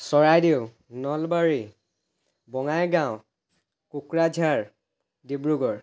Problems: background sounds at intervals